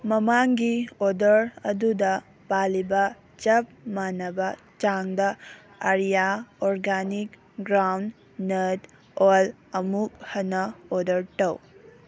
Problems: none marked